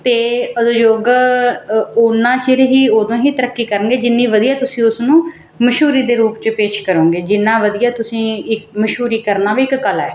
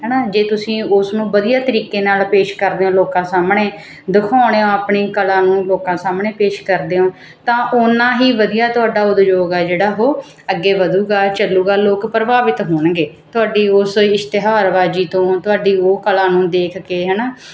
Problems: background sounds at intervals